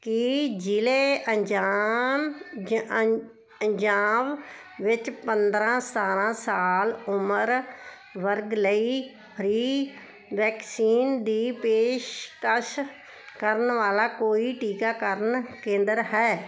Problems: none marked